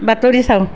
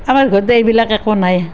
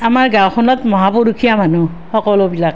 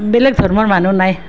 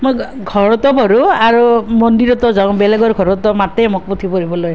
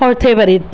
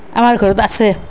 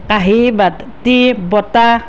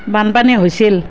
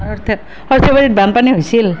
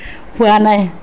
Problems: none marked